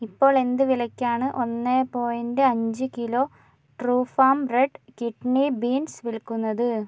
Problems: none marked